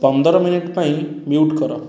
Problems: background sounds at intervals, background conversations at intervals